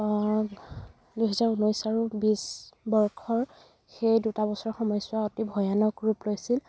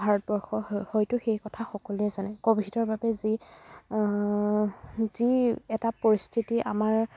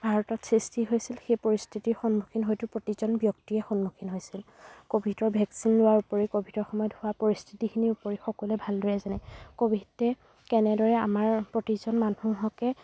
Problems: background sounds at intervals